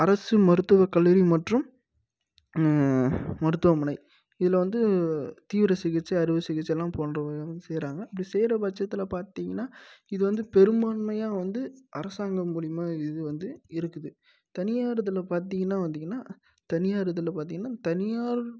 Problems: low volume